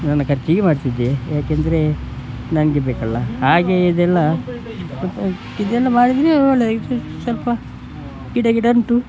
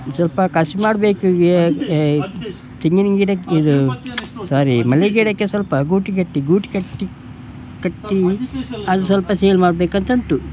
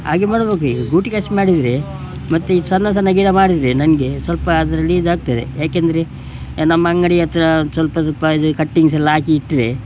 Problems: background sounds at intervals